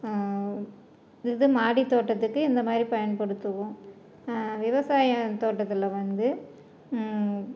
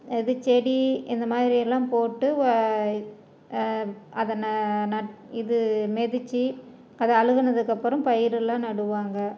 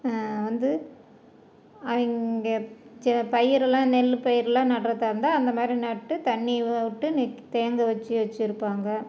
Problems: none marked